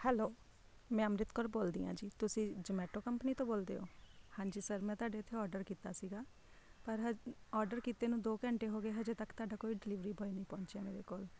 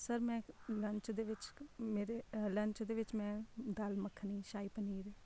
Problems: none marked